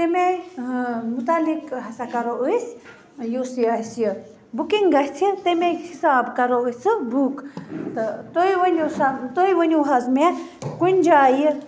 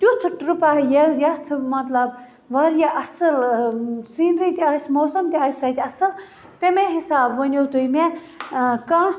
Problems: constant background noise